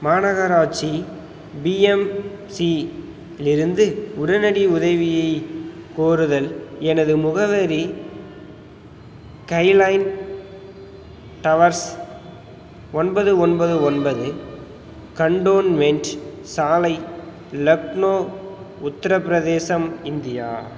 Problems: background sounds at intervals